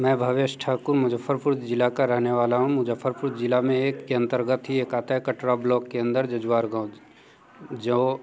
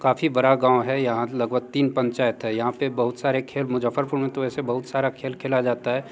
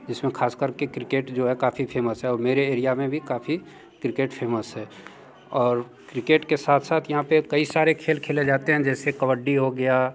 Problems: background sounds at intervals, background conversations at intervals